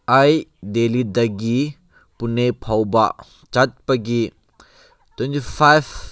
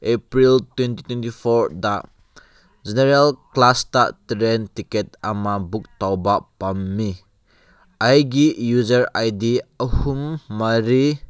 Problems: none marked